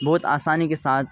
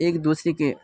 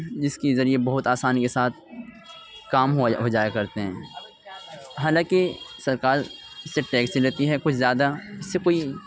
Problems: constant background noise